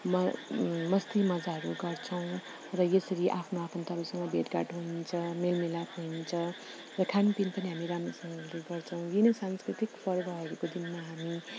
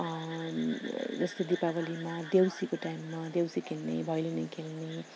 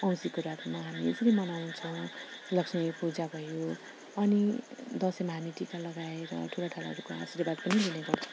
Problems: constant background noise